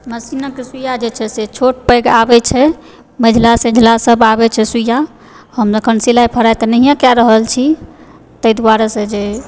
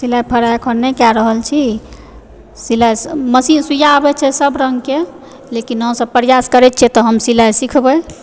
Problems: background conversations at intervals